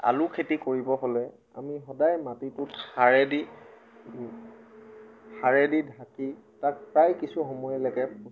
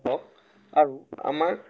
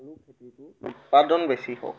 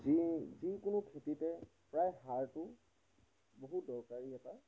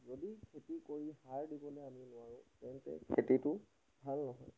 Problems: background sounds at intervals